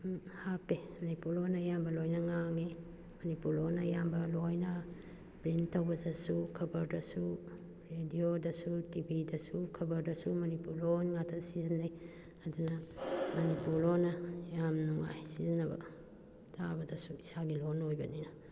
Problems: none marked